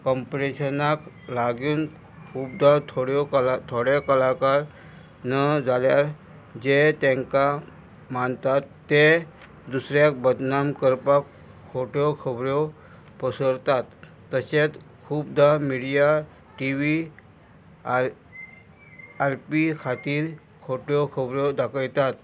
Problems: constant background noise